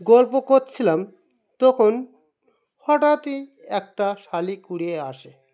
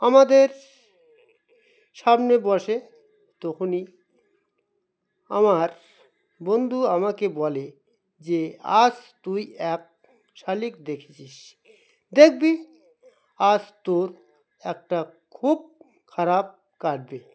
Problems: none marked